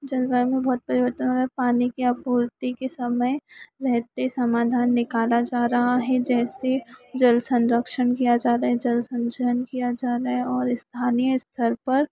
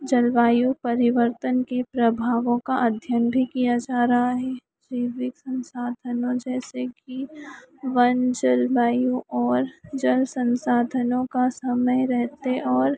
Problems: none marked